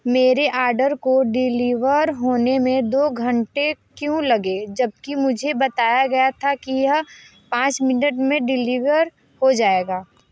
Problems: constant background noise